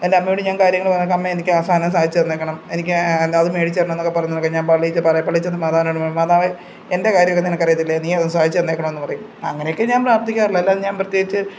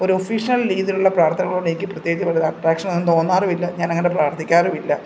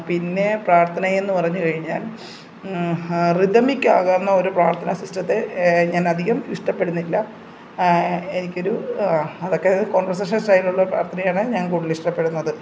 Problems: none marked